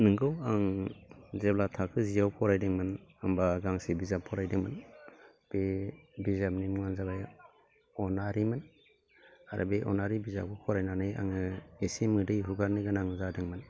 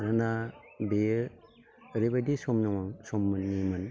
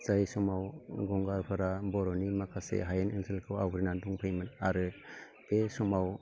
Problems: constant background noise